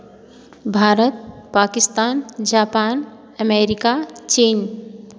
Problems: none marked